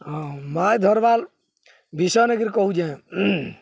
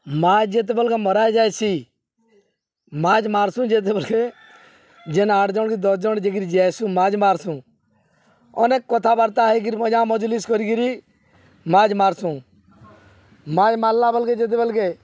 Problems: none marked